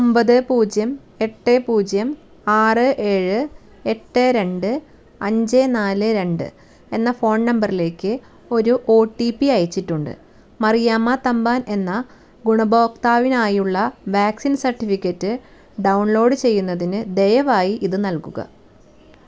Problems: none marked